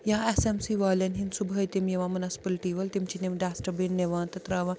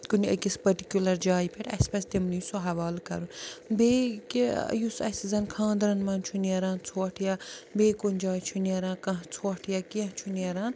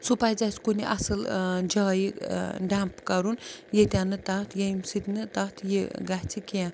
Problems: constant background noise